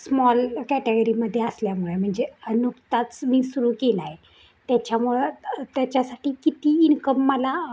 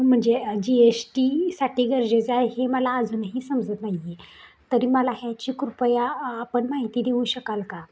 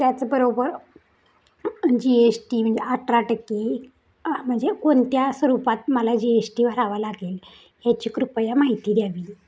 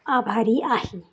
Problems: background sounds at intervals